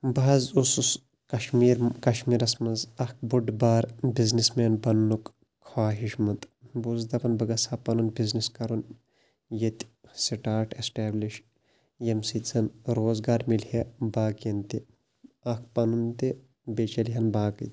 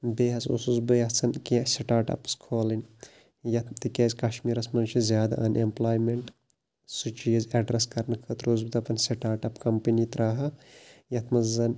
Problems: none marked